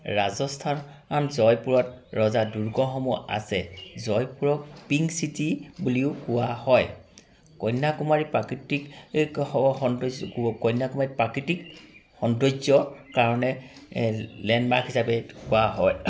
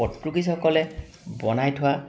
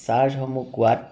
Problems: constant background noise